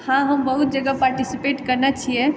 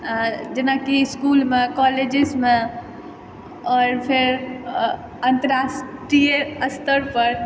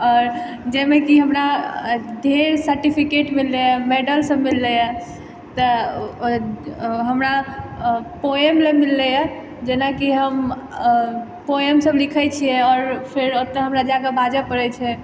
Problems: background sounds at intervals